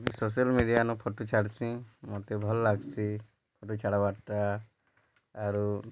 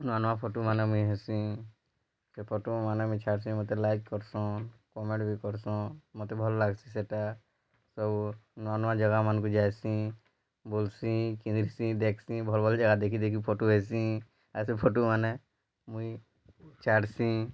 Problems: low volume